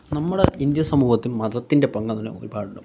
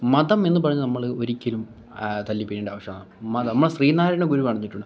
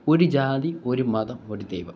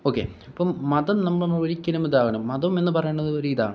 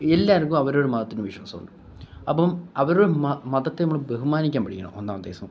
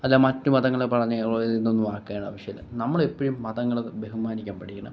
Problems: background sounds at intervals, background conversations at intervals, low volume